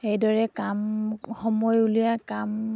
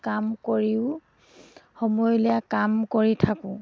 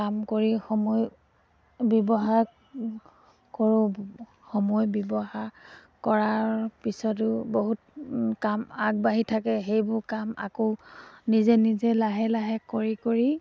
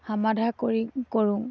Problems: background sounds at intervals